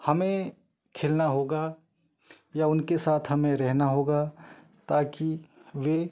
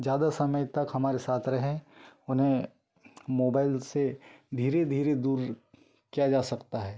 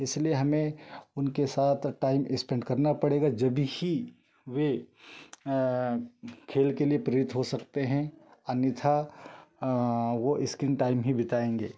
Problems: background sounds at intervals